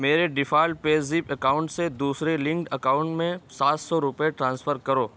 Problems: constant background noise